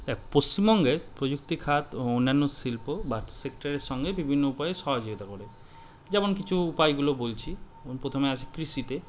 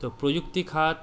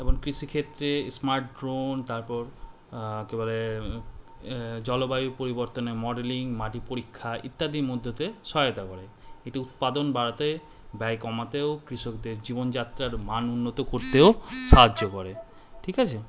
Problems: background sounds at intervals